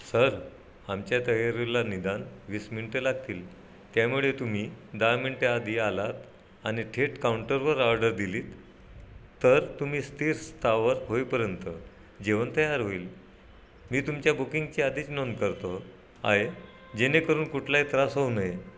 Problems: none marked